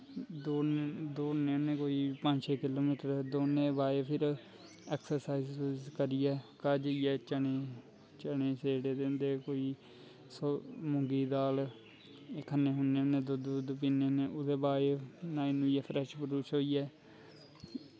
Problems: constant background noise